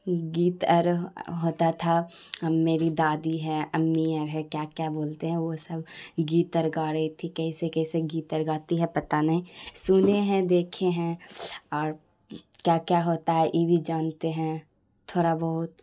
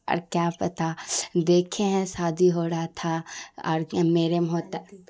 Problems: none marked